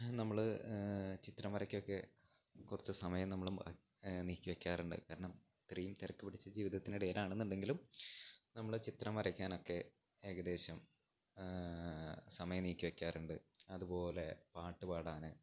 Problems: none marked